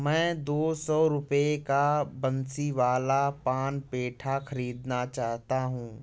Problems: constant background noise